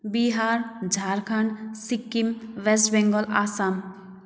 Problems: background sounds at intervals